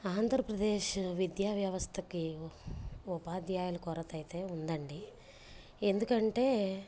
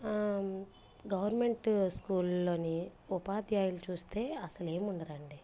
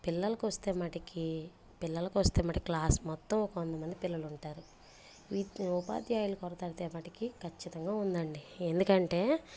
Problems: background sounds at intervals, low volume